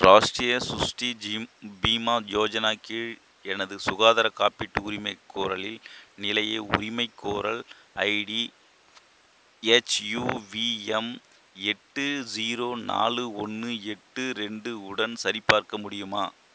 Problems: constant background noise